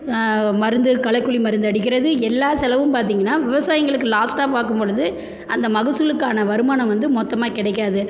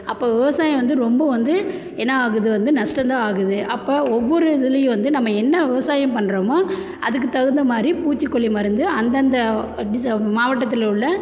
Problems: low volume